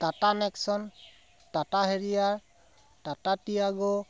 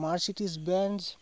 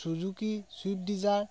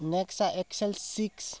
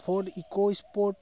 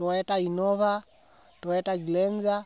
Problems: none marked